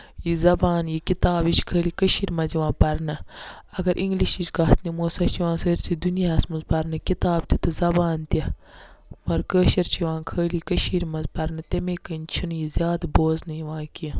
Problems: none marked